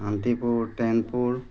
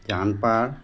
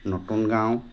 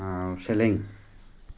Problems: constant background noise